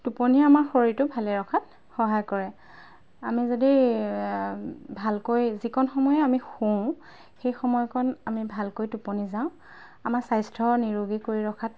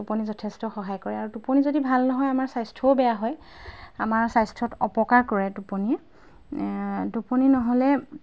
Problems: background sounds at intervals